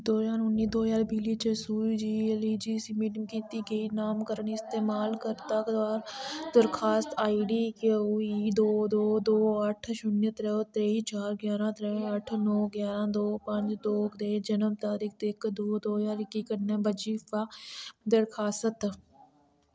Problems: none marked